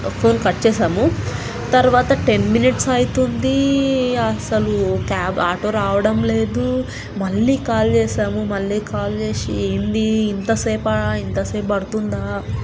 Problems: constant background noise